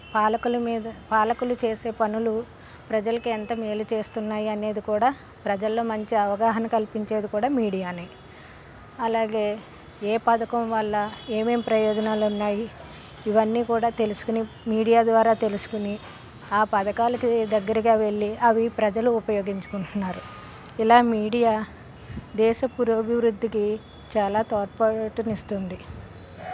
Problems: constant background noise